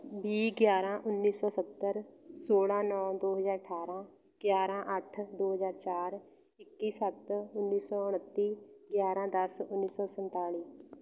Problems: background sounds at intervals